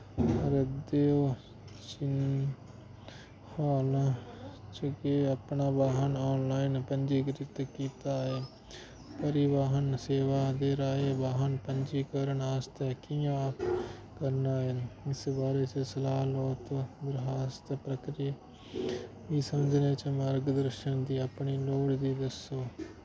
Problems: constant background noise